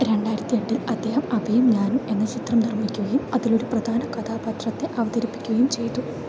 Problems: none marked